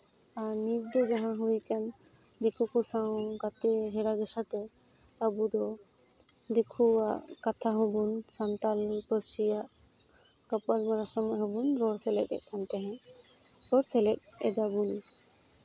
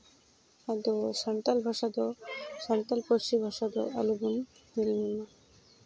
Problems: background sounds at intervals, low volume